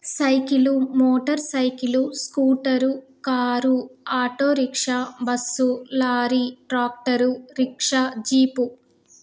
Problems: none marked